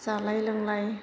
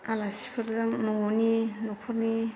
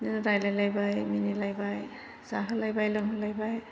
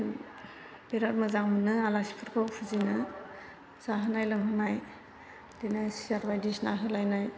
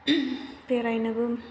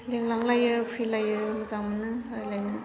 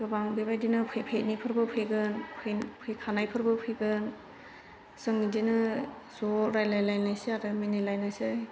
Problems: constant background noise